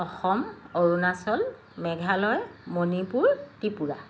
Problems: constant background noise